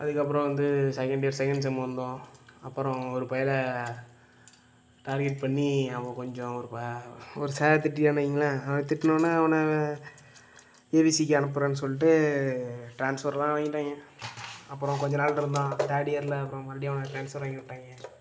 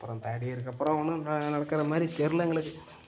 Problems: background sounds at intervals, low volume